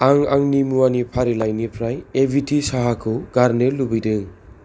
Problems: none marked